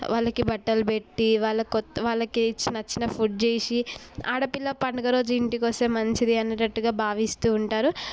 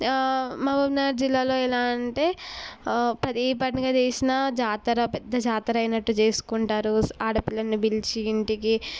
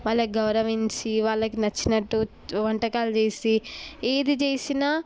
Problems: none marked